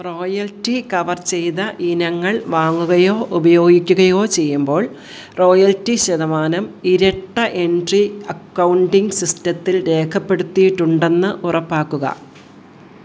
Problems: background sounds at intervals